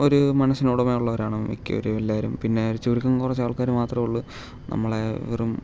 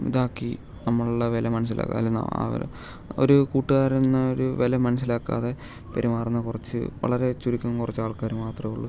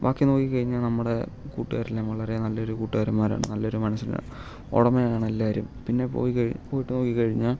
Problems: low volume